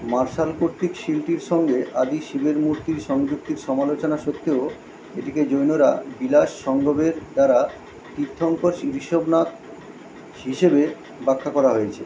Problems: constant background noise